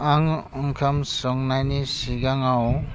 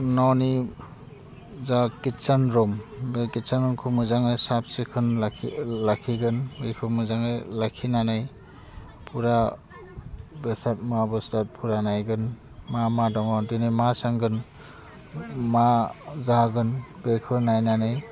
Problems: constant background noise